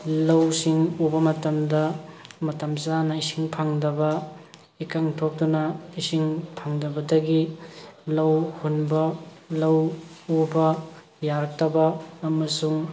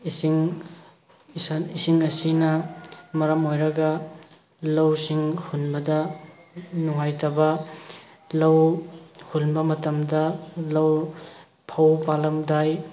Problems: background sounds at intervals